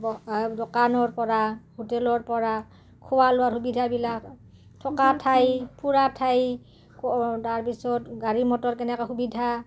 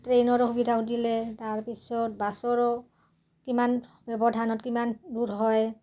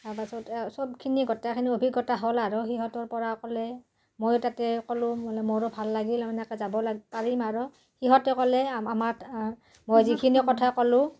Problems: constant background noise, background conversations at intervals